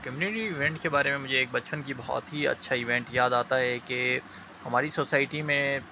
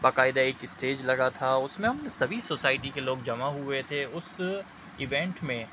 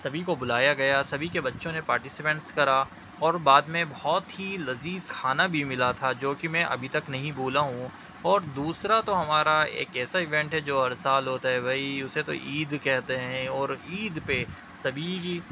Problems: constant background noise